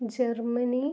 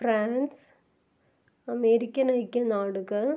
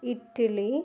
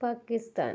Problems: low volume